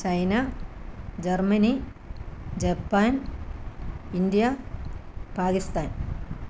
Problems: none marked